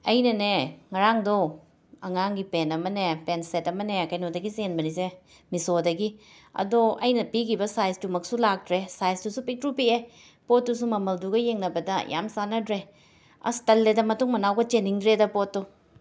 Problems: none marked